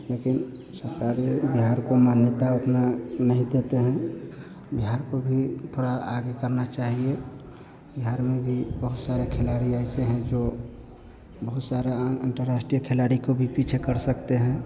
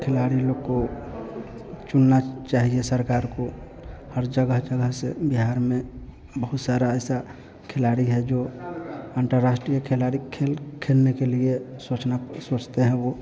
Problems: constant background noise